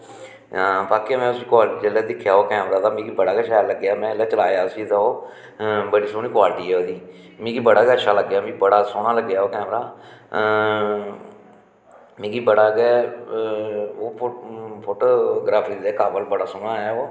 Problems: background sounds at intervals, echo